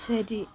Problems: low volume